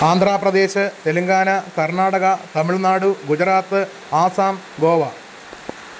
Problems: constant background noise